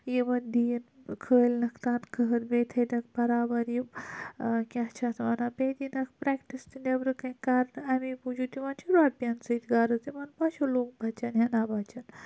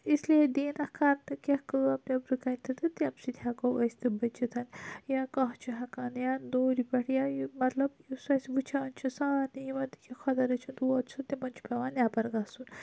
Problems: low volume